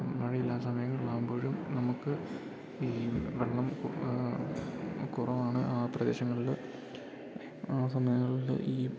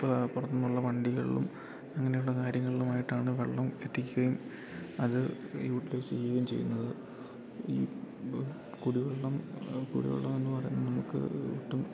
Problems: background conversations at intervals